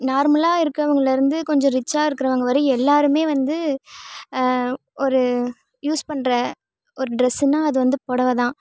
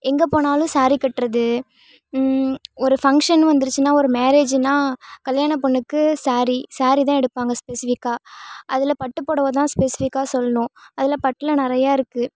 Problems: none marked